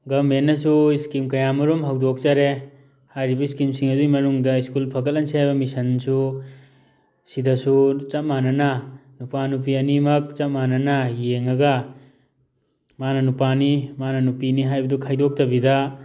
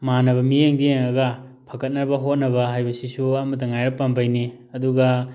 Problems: background sounds at intervals